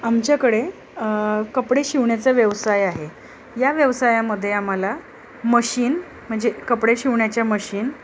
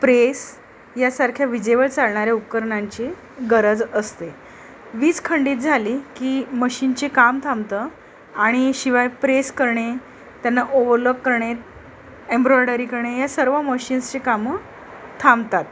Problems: constant background noise, background conversations at intervals